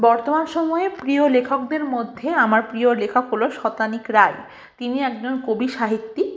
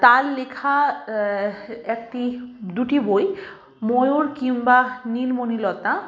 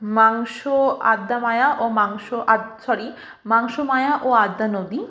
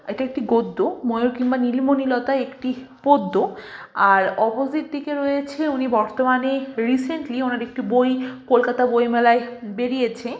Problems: constant background noise, continuous background conversations